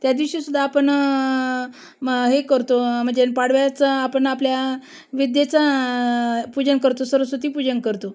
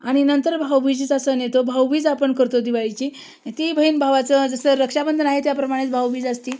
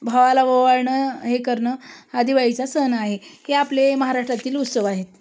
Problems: constant background noise